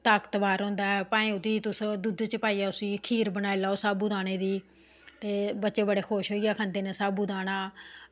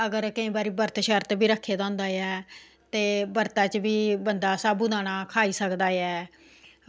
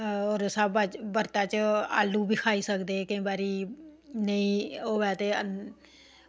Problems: background sounds at intervals